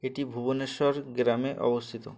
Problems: none marked